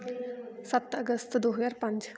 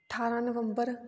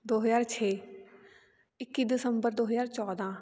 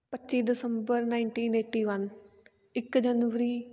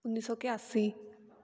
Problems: continuous background conversations